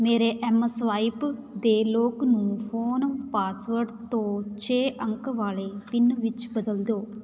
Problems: none marked